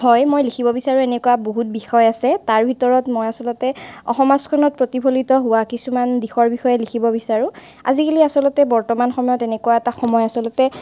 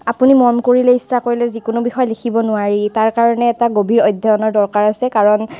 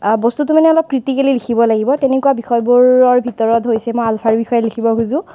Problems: constant background noise